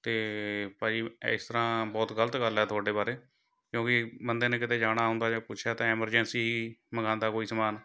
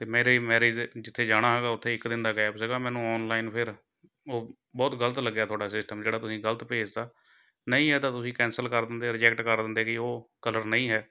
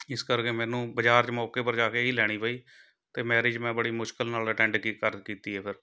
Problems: none marked